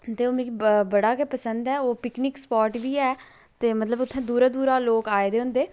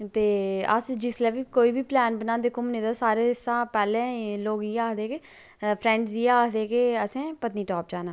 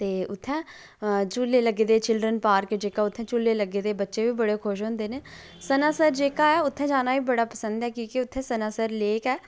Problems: low volume